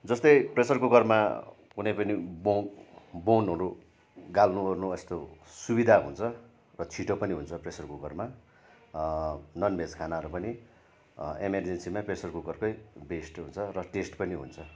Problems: none marked